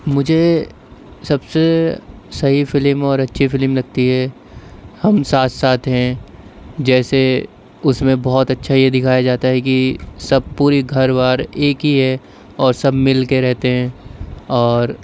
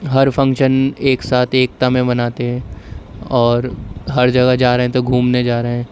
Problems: constant background noise